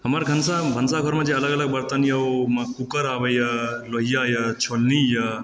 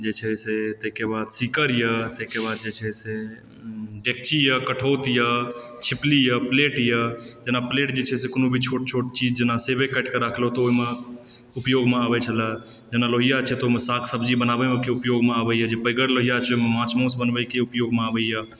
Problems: background sounds at intervals